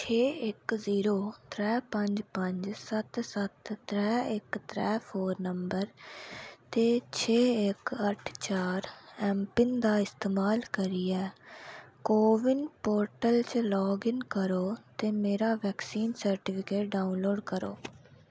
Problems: none marked